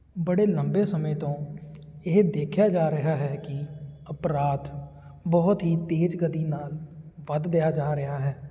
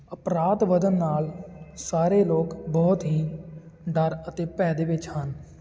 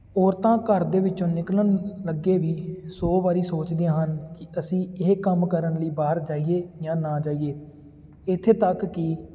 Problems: constant background noise